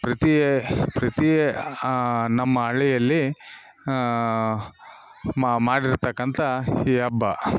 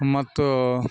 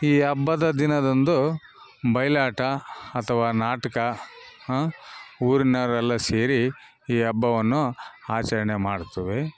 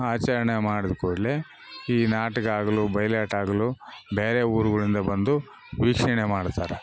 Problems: none marked